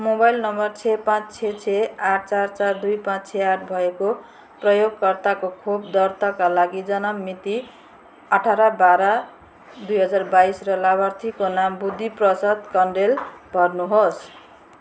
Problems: constant background noise